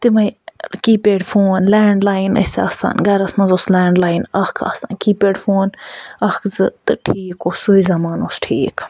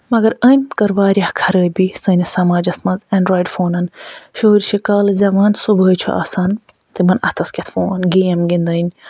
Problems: none marked